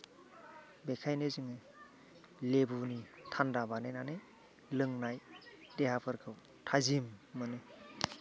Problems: background sounds at intervals, background conversations at intervals